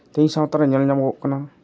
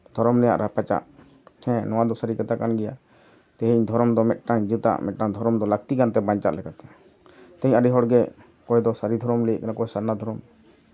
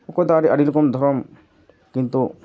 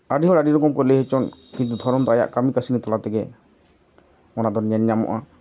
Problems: none marked